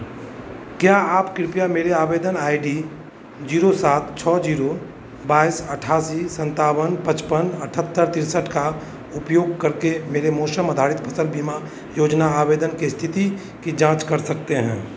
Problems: constant background noise